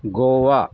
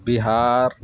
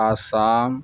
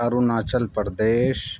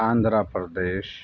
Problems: constant background noise